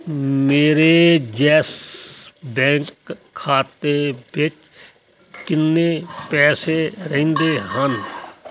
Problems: constant background noise